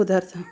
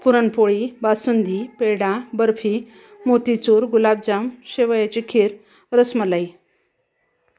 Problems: background sounds at intervals, background conversations at intervals